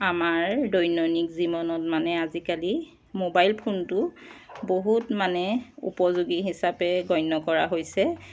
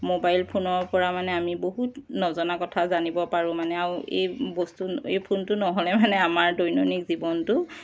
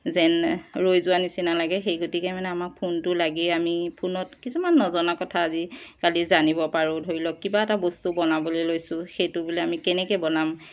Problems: none marked